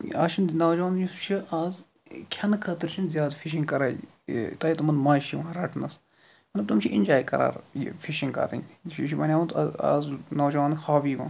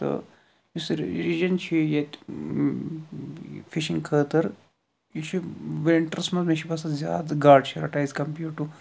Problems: none marked